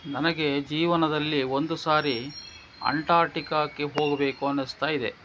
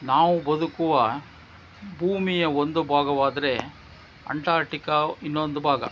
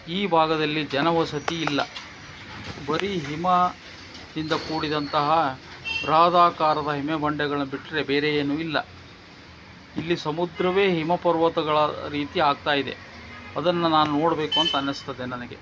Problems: background sounds at intervals